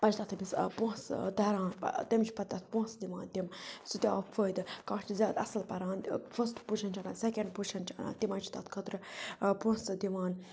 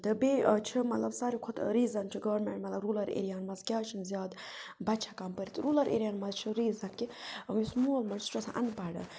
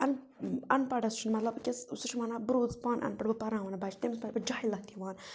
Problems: none marked